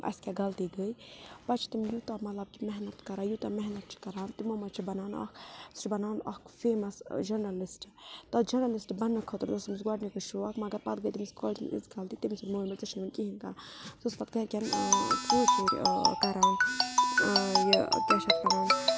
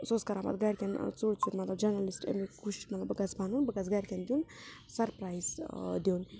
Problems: constant background noise